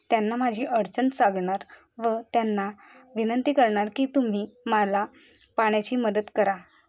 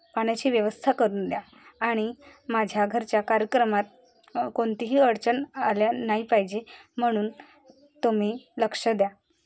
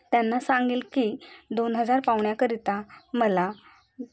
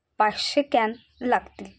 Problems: none marked